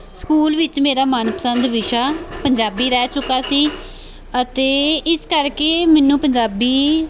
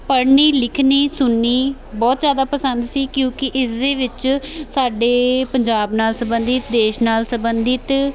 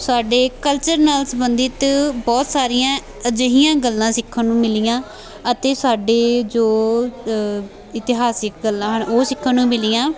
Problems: continuous background conversations